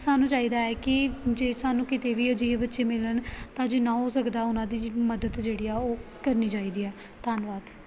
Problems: constant background noise